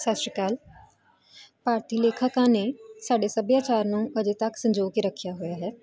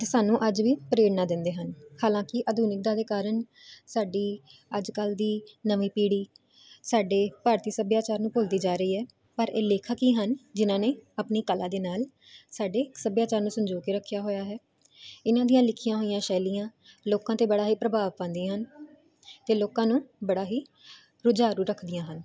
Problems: none marked